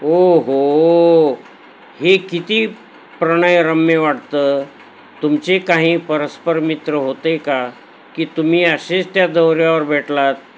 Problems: none marked